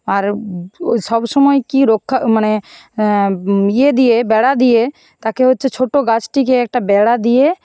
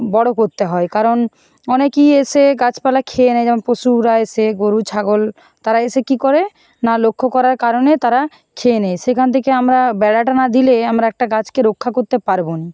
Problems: none marked